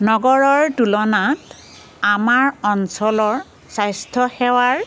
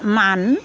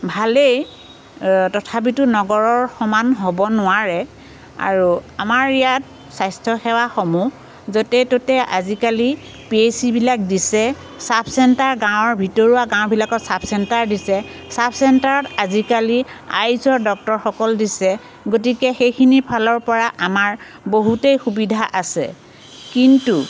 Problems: constant background noise